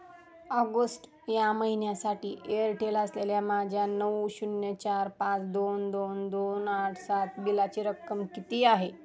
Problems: none marked